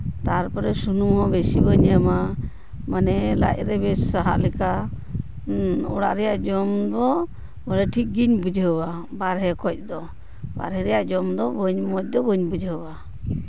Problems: constant background noise